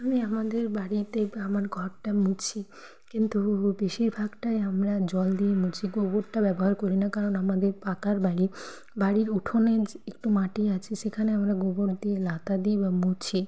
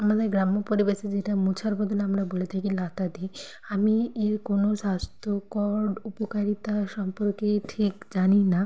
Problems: constant background noise